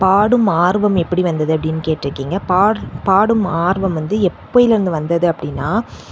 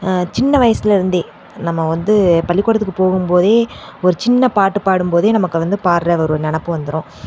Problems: none marked